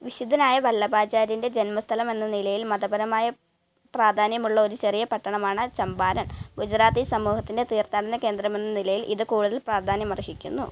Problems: none marked